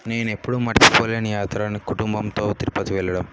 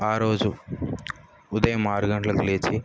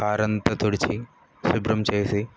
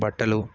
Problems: background sounds at intervals